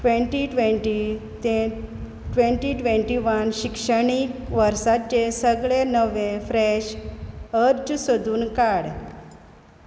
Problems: background sounds at intervals